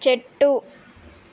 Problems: none marked